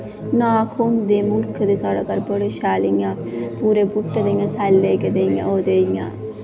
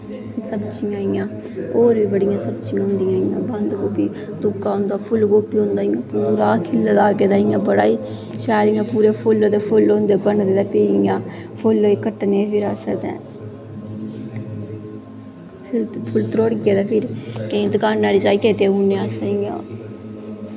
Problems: constant background noise, echo